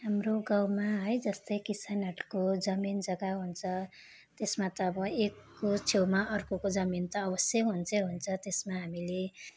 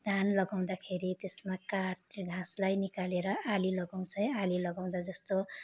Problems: constant background noise